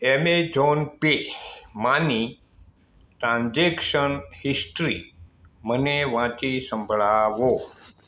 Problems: background sounds at intervals